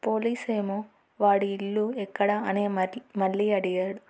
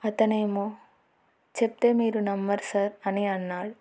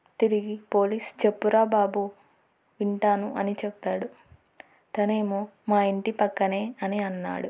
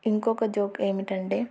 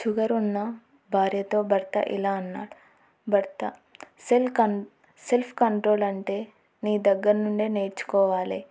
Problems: none marked